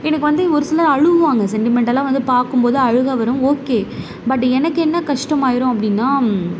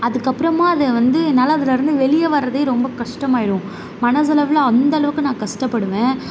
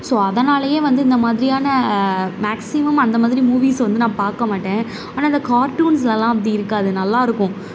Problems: none marked